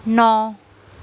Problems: background conversations at intervals